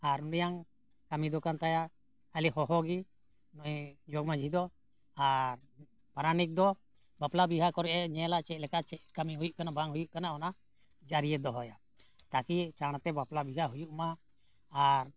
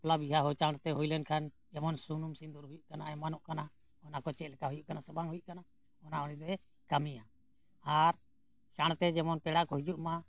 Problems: none marked